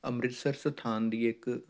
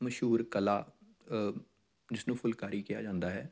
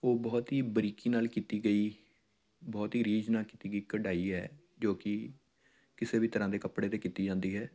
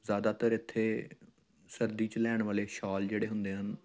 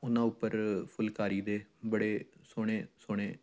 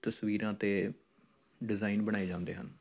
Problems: background sounds at intervals